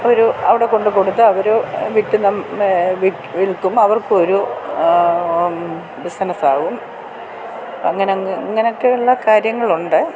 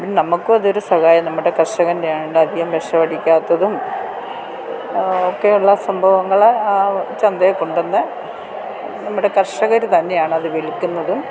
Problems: constant background noise